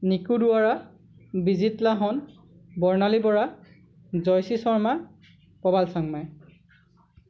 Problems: none marked